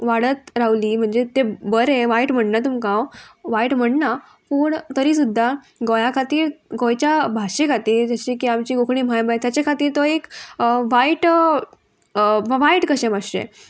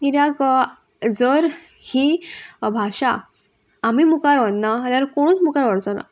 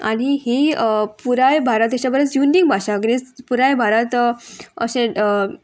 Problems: constant background noise